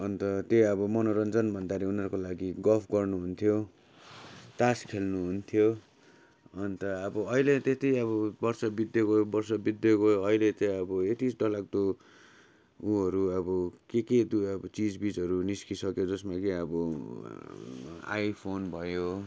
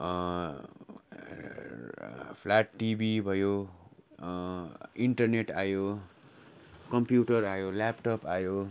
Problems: constant background noise